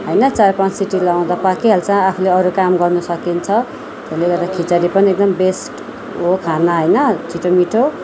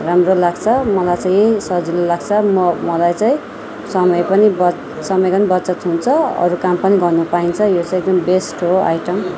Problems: continuous background conversations